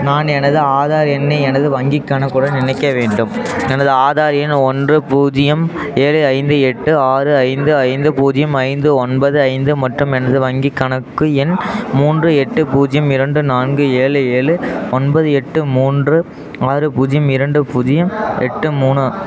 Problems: background conversations at intervals